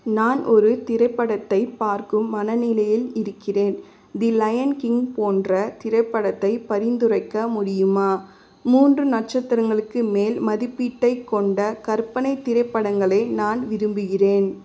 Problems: none marked